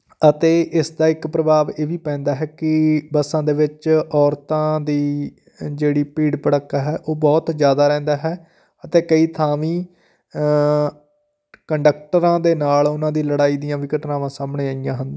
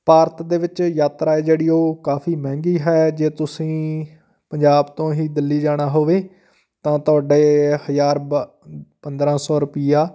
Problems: none marked